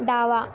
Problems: none marked